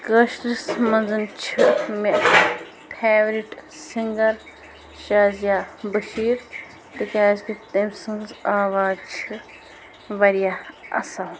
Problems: constant background noise, background conversations at intervals